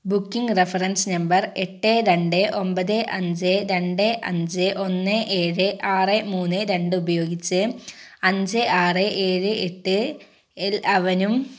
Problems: none marked